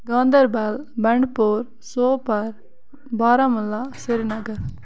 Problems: constant background noise